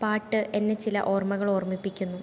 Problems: background sounds at intervals